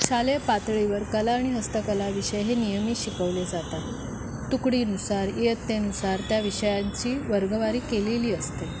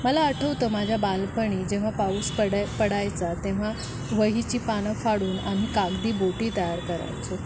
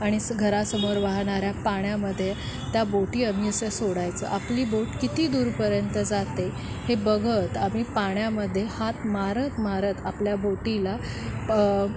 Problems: none marked